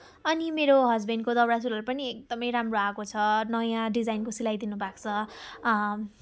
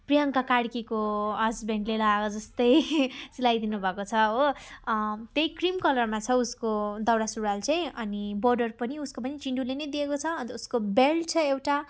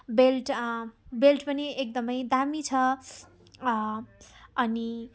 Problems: none marked